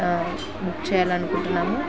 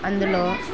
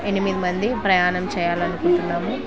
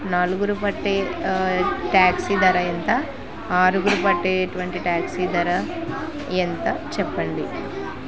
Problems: constant background noise